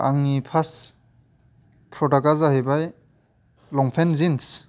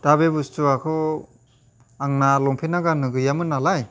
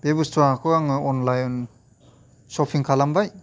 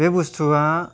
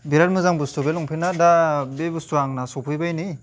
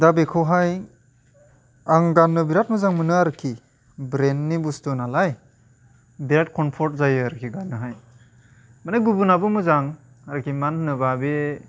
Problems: constant background noise